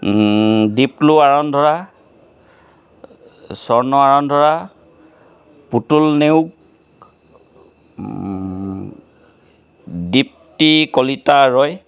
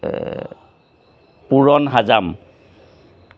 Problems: background sounds at intervals